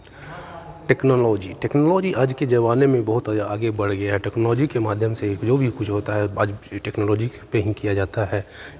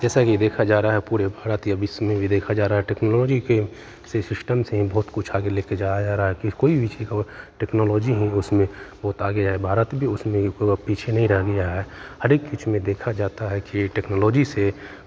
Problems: constant background noise, continuous background conversations